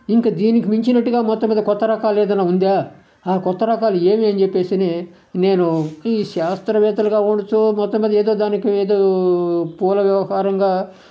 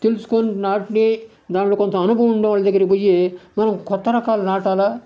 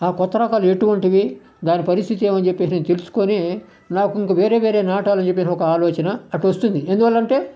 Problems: none marked